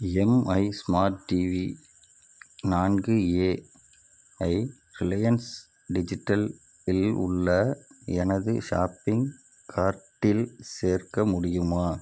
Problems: none marked